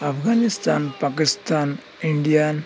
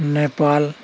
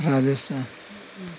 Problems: constant background noise, continuous background conversations